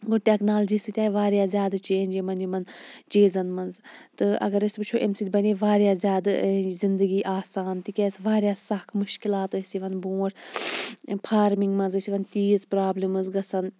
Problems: background sounds at intervals